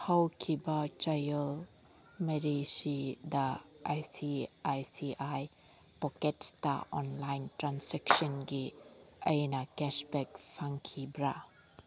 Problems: background sounds at intervals